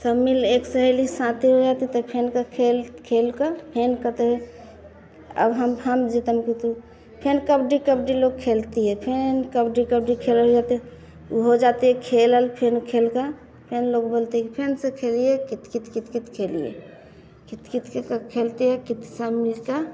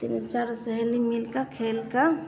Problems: none marked